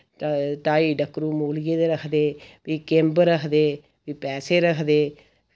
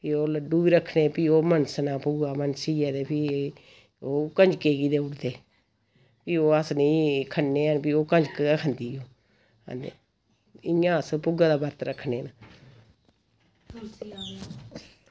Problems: constant background noise